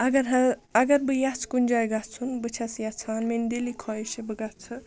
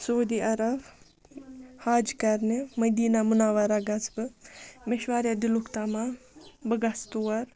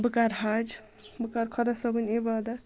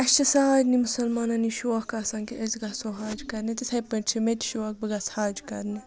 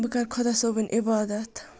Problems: background sounds at intervals